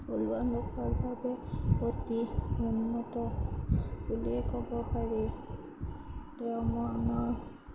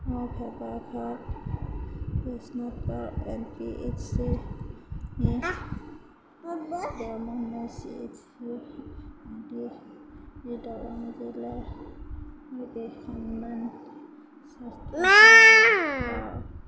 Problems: background sounds at intervals, low volume